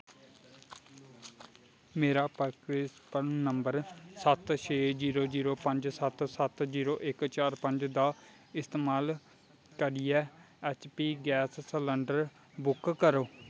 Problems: background sounds at intervals